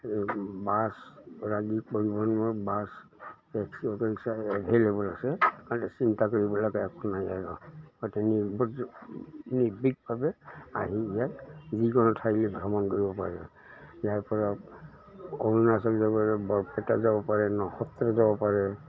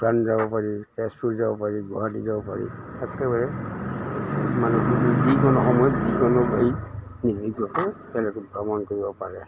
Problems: constant background noise